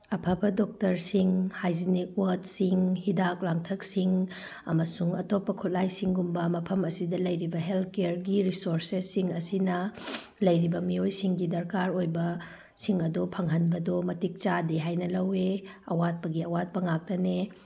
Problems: none marked